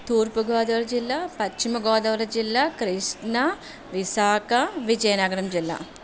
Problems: constant background noise